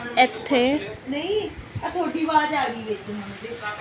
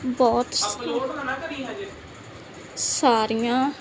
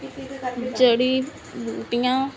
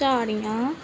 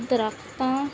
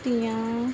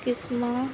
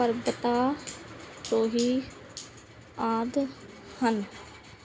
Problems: constant background noise, continuous background conversations